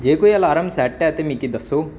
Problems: constant background noise